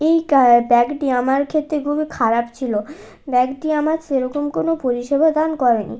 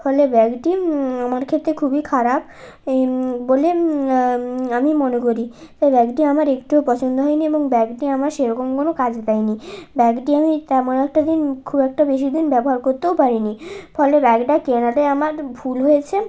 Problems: none marked